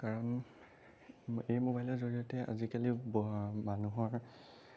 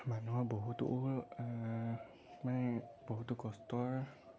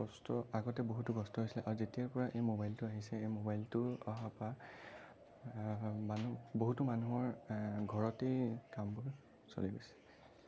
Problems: none marked